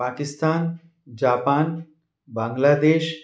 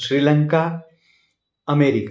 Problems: background sounds at intervals